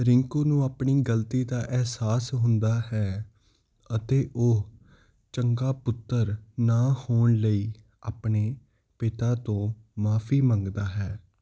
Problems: none marked